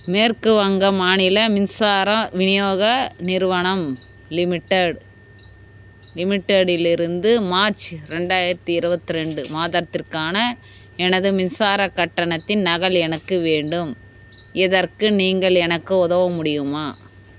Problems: constant background noise